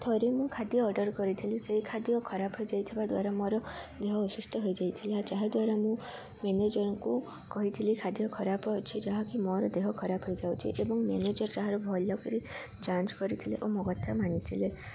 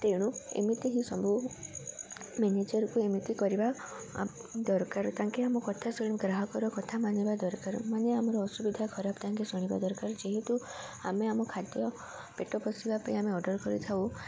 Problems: none marked